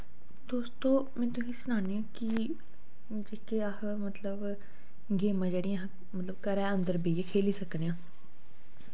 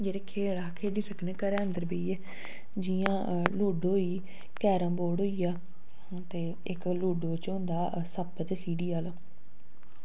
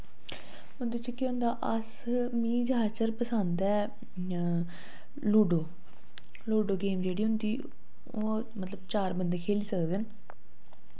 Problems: low volume